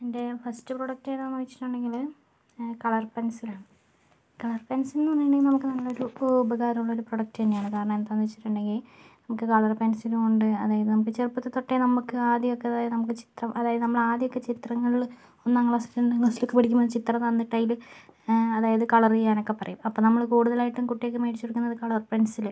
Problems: none marked